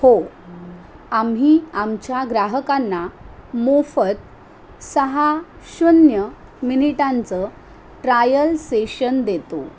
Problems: constant background noise